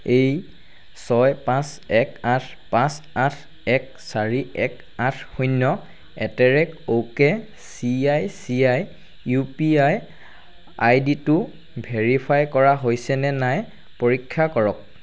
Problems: none marked